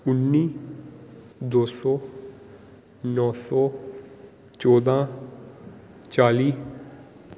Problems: none marked